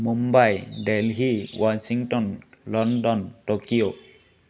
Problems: none marked